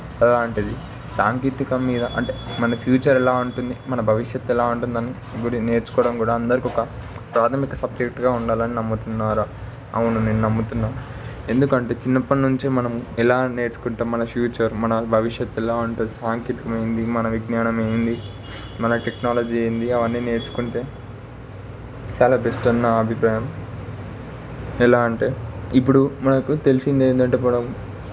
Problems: constant background noise